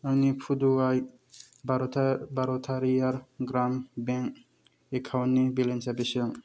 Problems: none marked